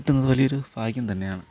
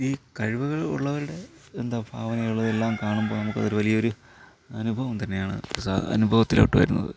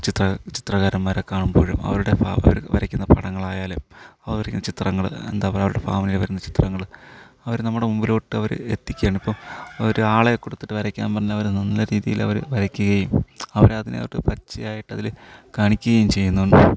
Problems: none marked